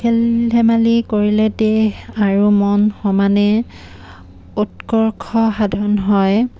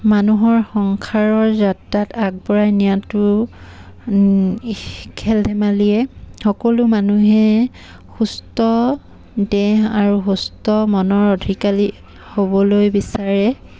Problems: background sounds at intervals